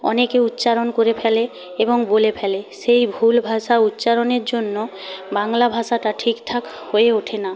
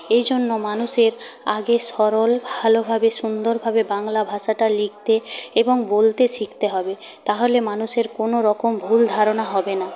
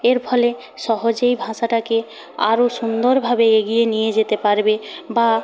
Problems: constant background noise